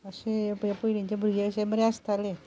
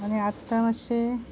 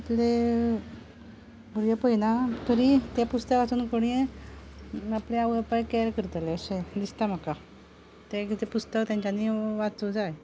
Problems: low volume